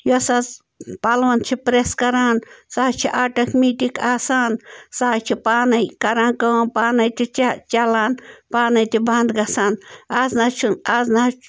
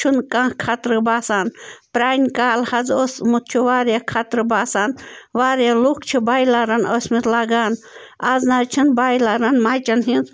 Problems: constant background noise